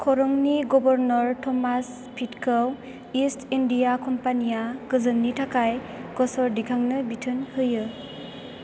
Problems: constant background noise